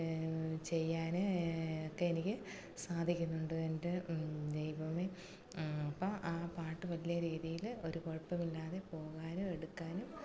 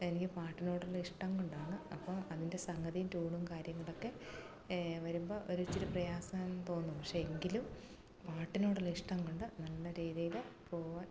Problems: low volume